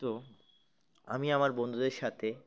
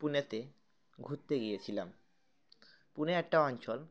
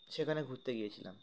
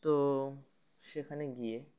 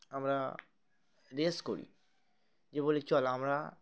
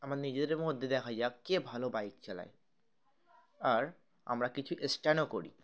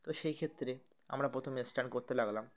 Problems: background sounds at intervals, continuous background conversations